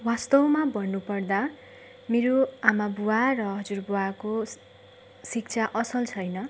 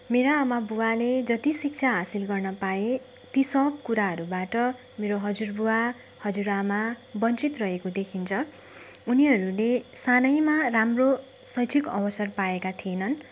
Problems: none marked